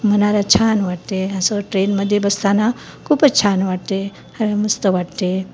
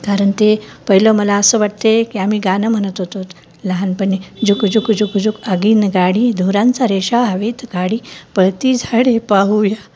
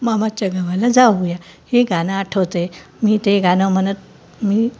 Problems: constant background noise